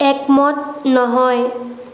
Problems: constant background noise